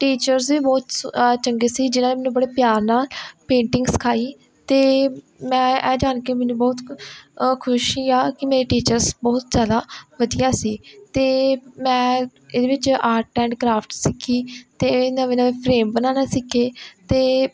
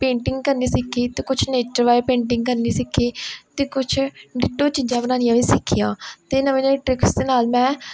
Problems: none marked